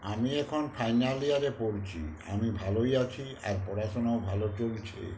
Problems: constant background noise